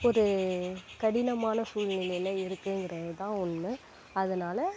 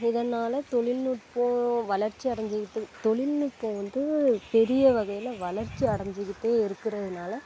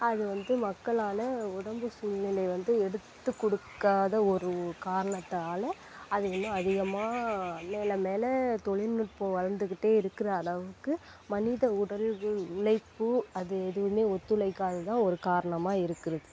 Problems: constant background noise